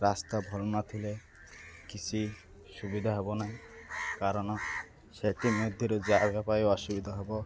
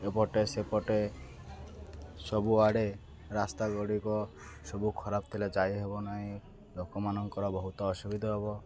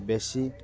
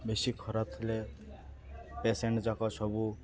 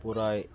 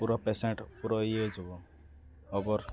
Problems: constant background noise, continuous background conversations